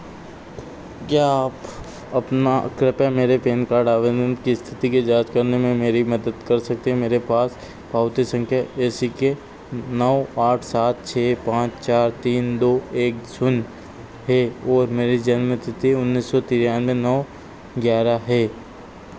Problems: constant background noise